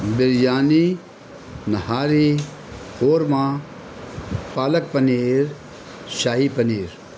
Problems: constant background noise